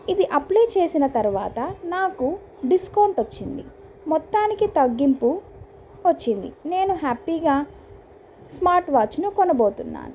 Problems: constant background noise